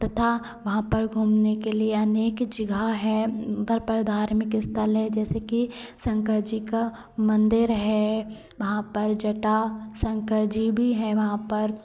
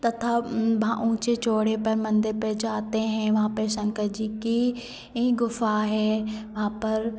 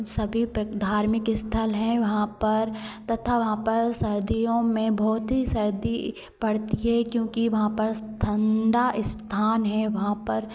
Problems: constant background noise, continuous background conversations